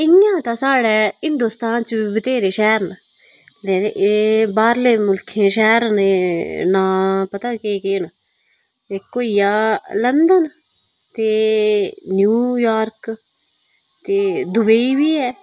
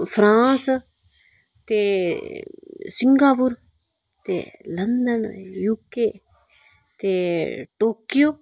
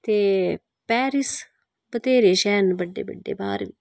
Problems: background sounds at intervals